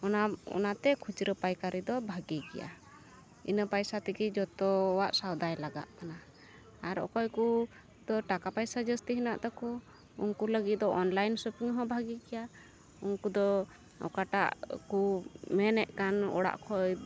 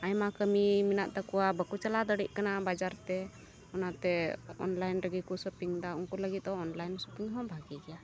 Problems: background sounds at intervals